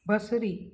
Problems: none marked